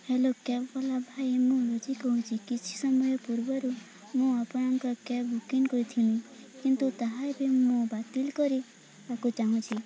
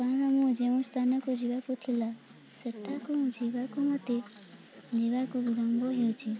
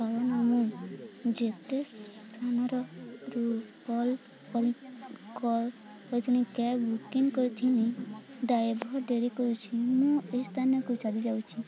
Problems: constant background noise, continuous background conversations